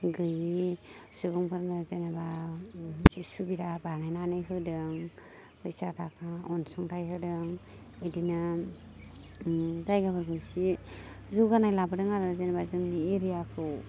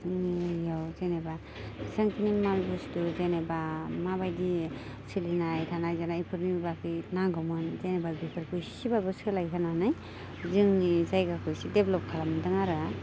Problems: constant background noise